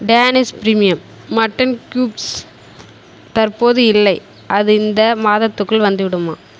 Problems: constant background noise